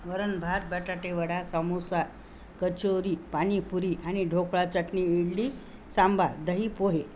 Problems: none marked